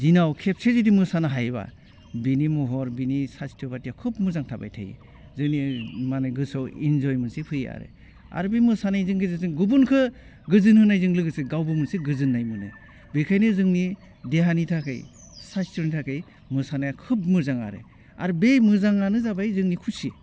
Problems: none marked